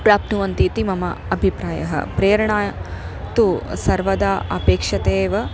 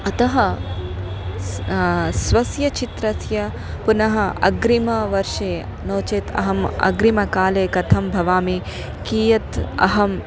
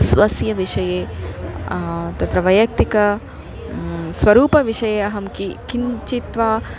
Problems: constant background noise, background conversations at intervals